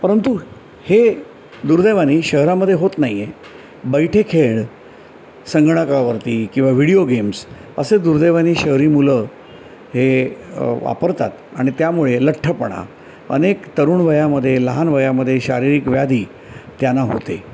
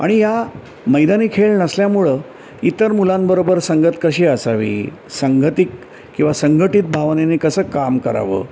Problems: background sounds at intervals